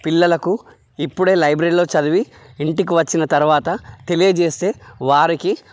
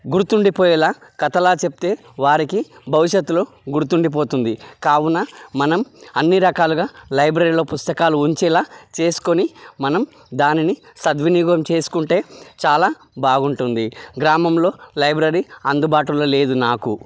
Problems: none marked